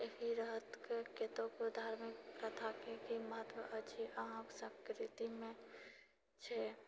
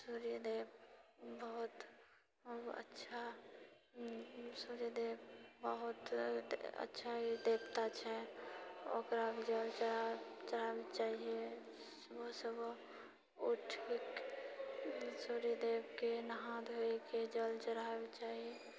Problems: low volume